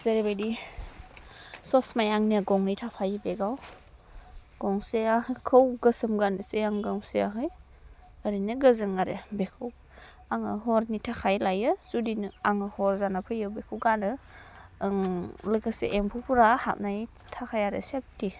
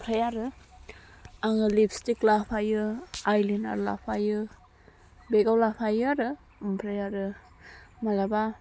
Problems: none marked